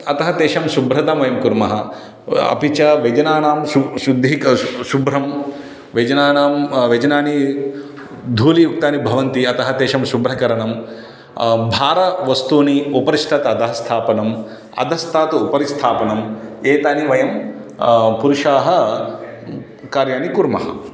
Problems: background sounds at intervals